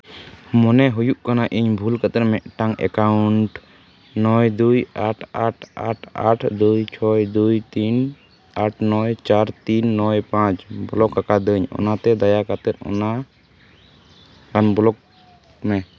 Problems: constant background noise